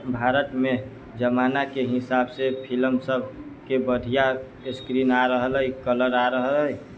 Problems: background sounds at intervals